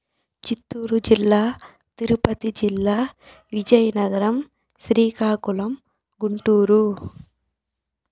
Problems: background sounds at intervals